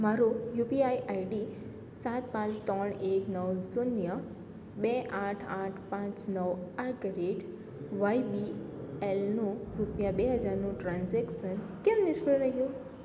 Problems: none marked